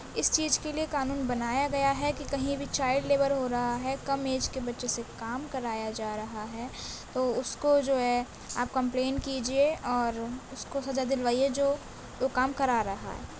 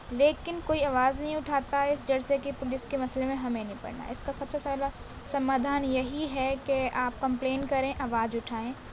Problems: constant background noise